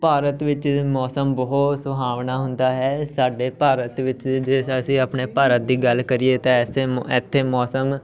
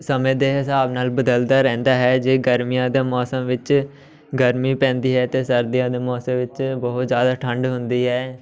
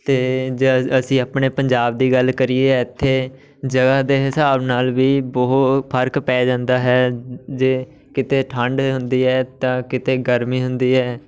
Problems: background sounds at intervals, background conversations at intervals